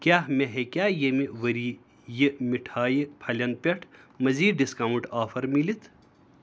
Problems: none marked